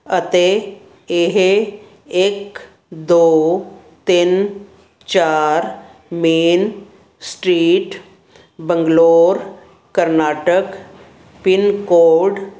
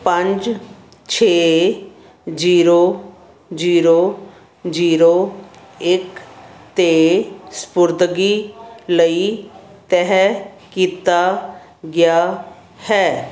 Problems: none marked